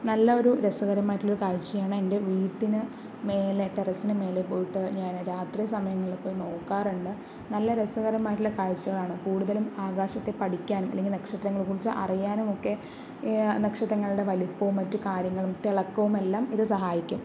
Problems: background sounds at intervals